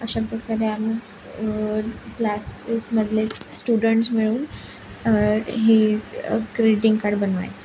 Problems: constant background noise, continuous background conversations